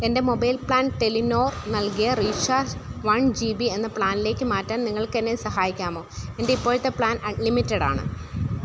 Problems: constant background noise